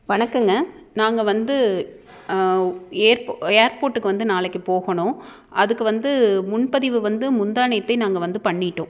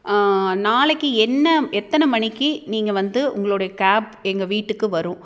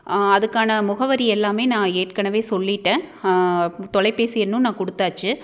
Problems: none marked